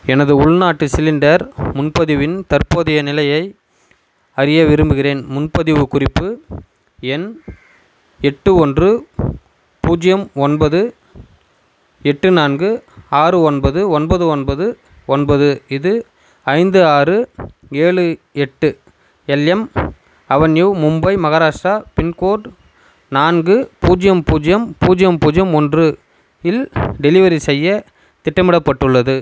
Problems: constant background noise